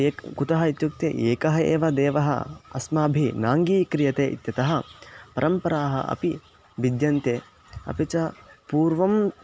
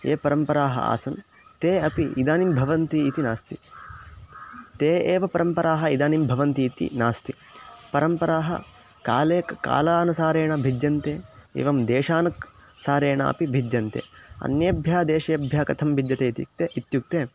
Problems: constant background noise